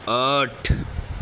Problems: none marked